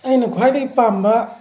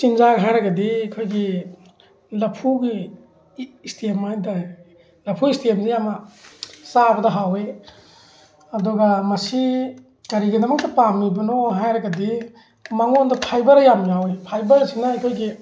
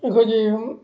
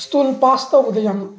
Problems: constant background noise